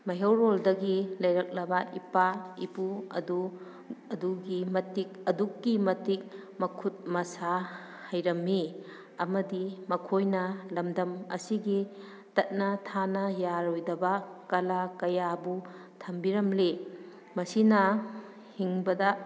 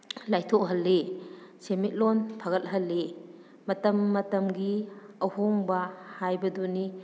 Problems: none marked